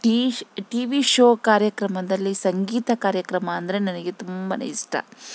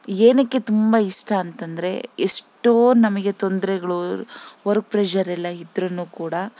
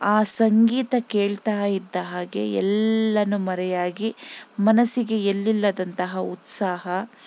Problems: none marked